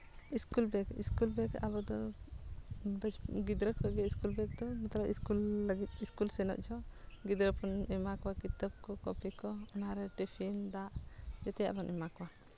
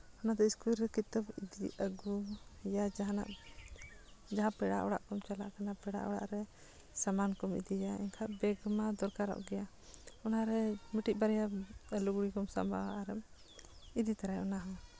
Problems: none marked